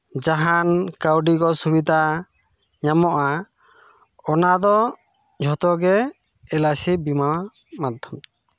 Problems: background sounds at intervals